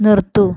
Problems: none marked